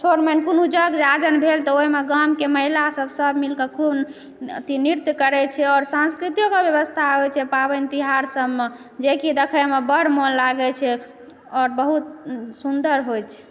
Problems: background sounds at intervals